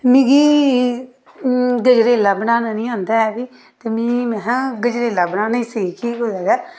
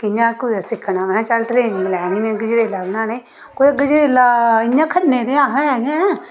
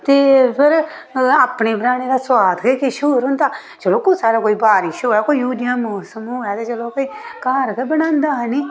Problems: background sounds at intervals